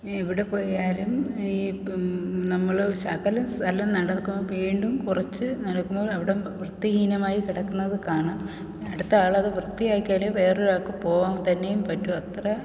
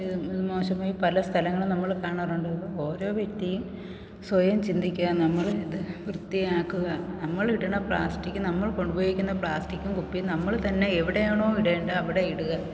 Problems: none marked